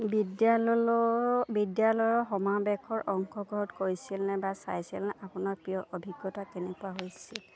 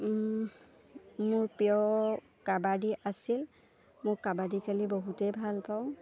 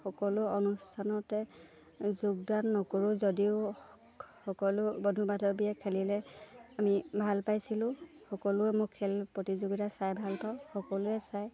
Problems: none marked